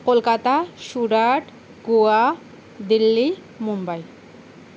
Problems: constant background noise